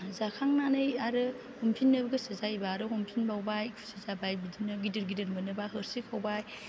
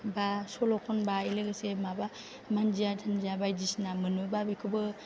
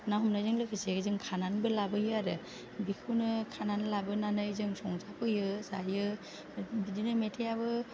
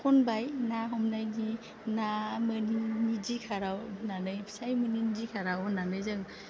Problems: low volume